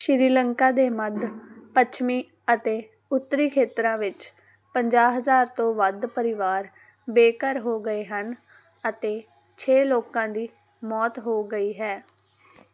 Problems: background sounds at intervals